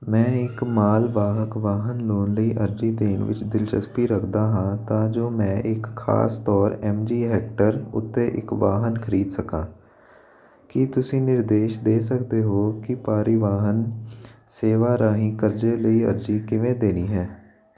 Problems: none marked